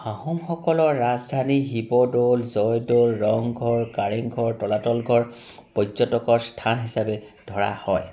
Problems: constant background noise